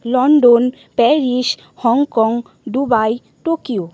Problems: constant background noise